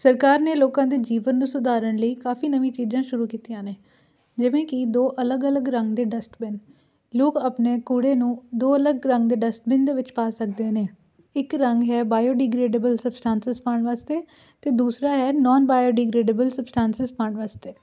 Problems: none marked